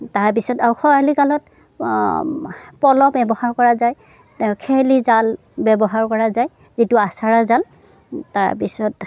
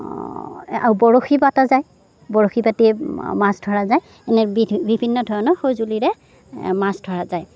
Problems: none marked